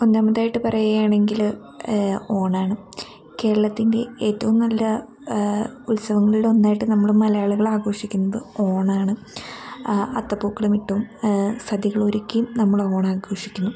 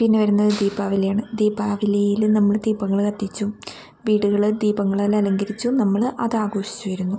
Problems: constant background noise